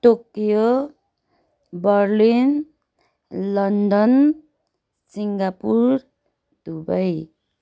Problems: none marked